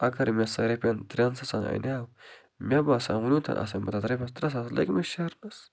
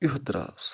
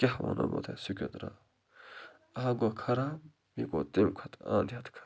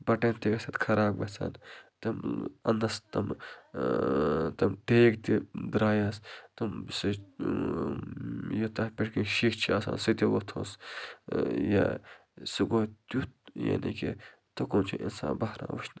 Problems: low volume